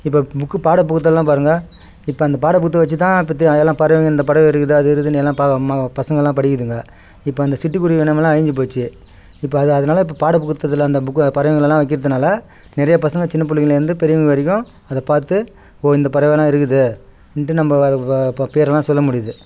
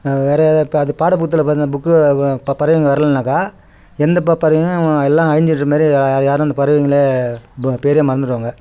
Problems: background sounds at intervals